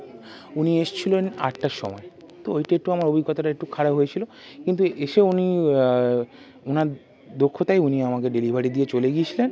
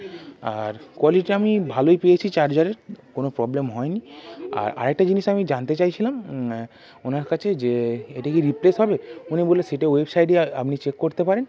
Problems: constant background noise, continuous background conversations